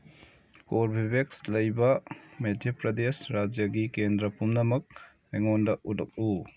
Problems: background sounds at intervals